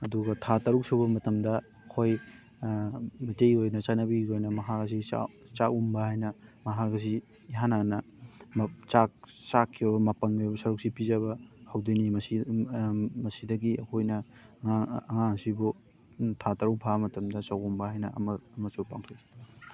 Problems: background sounds at intervals, continuous background conversations